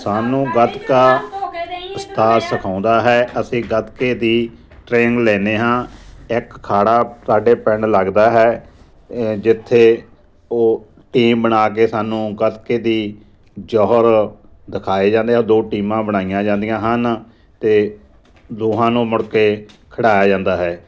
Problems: constant background noise, background conversations at intervals